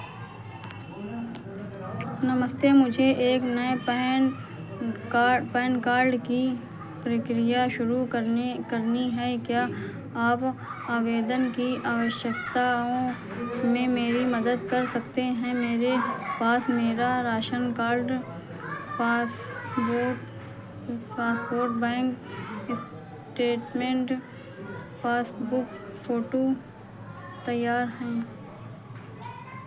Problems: background sounds at intervals